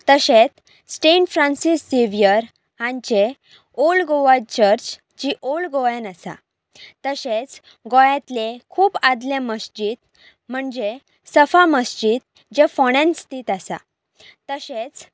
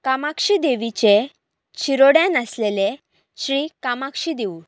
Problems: background sounds at intervals